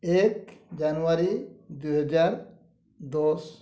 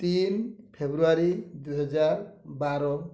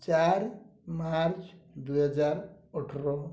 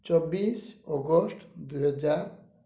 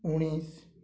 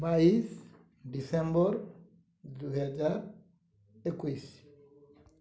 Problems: low volume